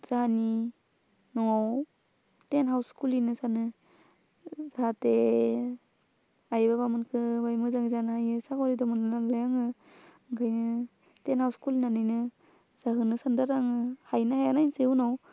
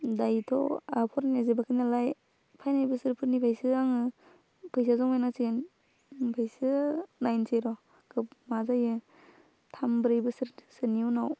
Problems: constant background noise